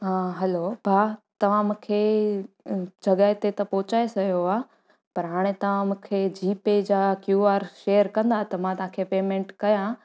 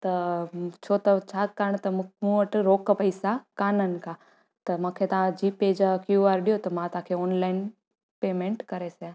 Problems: none marked